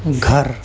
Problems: constant background noise